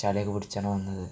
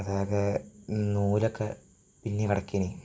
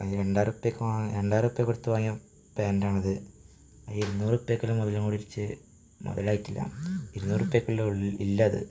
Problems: background sounds at intervals, low volume